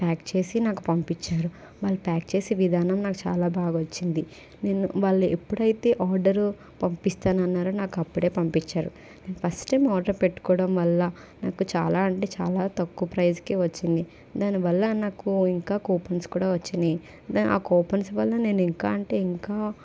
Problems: constant background noise